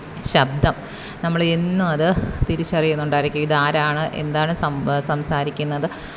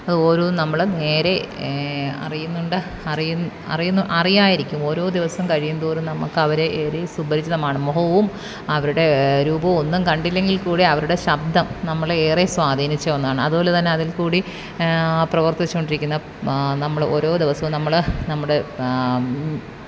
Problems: background sounds at intervals